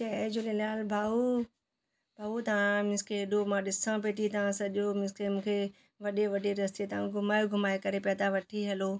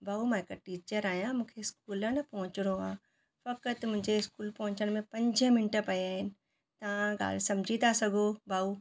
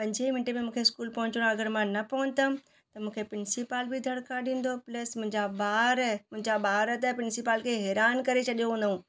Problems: none marked